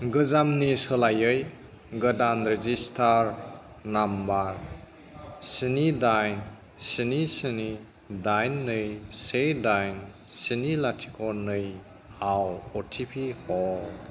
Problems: background conversations at intervals